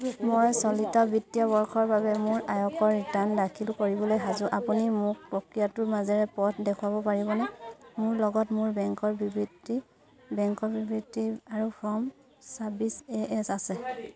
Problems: constant background noise, continuous background conversations